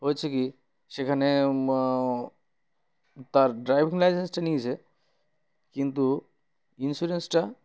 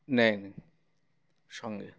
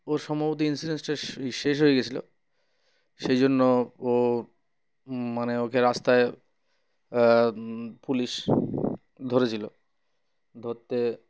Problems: none marked